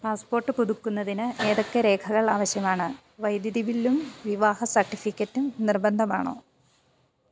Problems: low volume